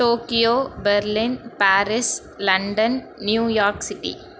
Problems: constant background noise